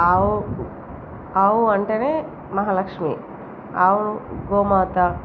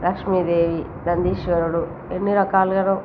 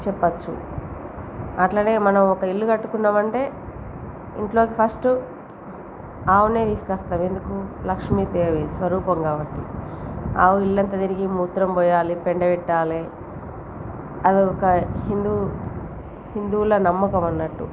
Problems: constant background noise